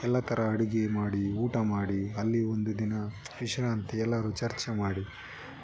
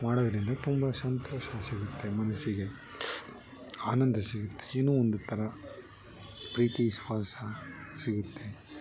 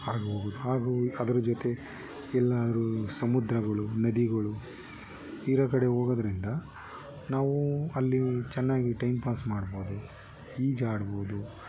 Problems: background sounds at intervals